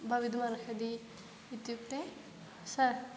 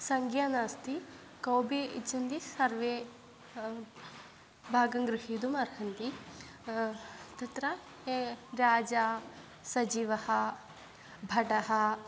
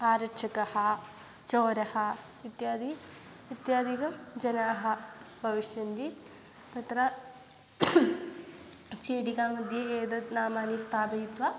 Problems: none marked